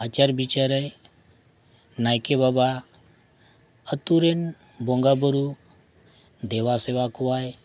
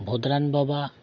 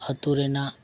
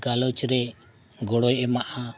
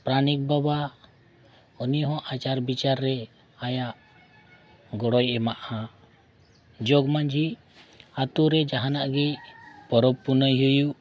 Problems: none marked